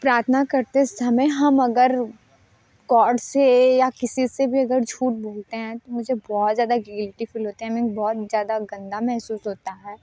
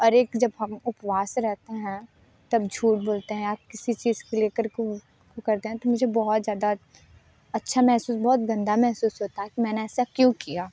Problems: none marked